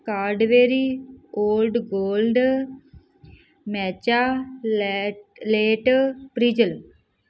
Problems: none marked